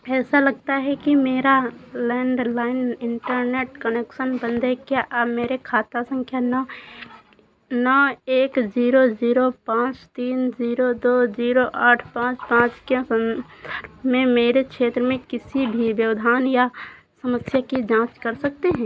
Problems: constant background noise